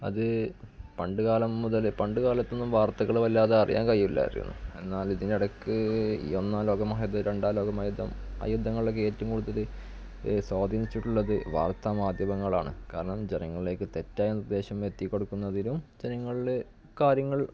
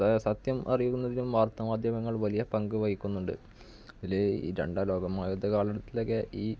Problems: background sounds at intervals, low volume